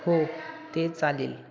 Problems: none marked